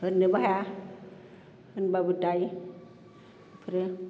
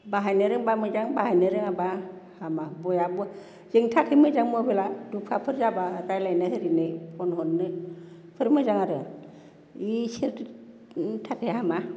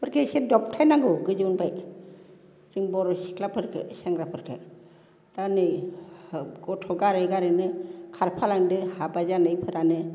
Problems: constant background noise